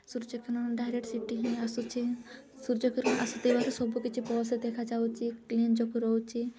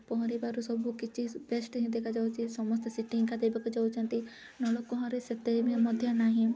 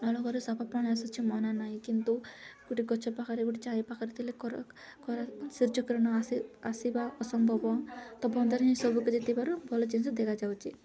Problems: none marked